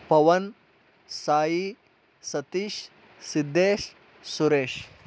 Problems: background sounds at intervals